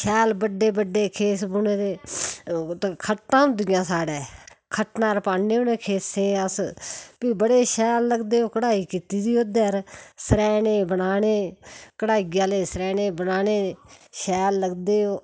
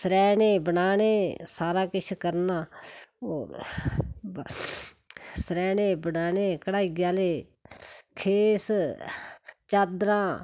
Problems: background sounds at intervals